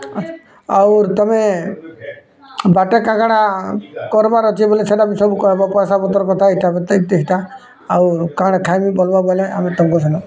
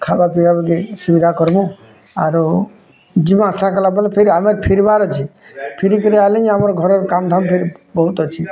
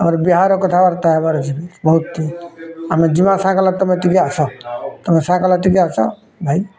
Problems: constant background noise, continuous background conversations